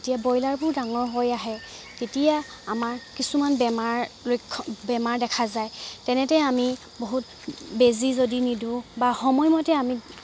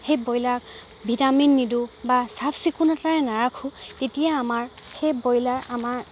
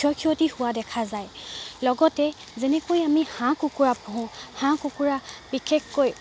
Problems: background sounds at intervals